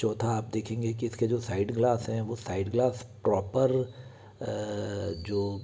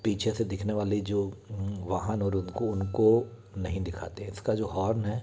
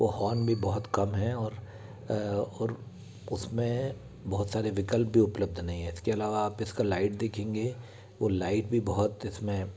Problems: constant background noise, continuous background conversations